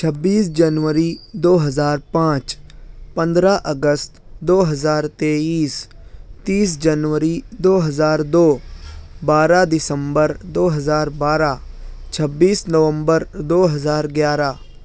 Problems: none marked